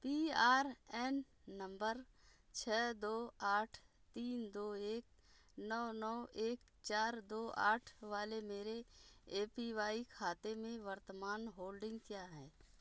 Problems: background sounds at intervals